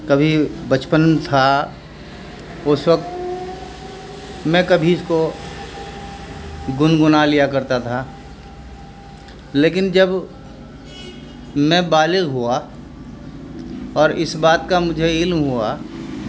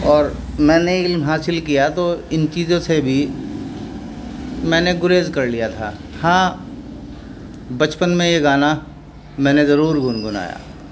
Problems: background sounds at intervals